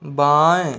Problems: none marked